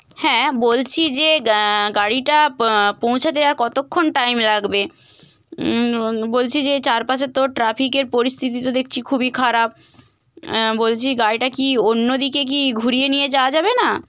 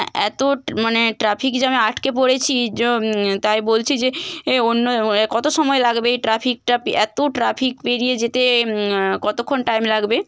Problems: constant background noise